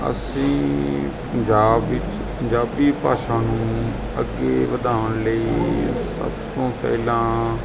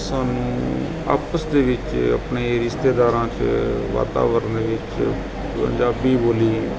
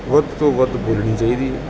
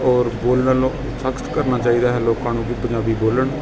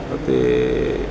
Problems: constant background noise, background conversations at intervals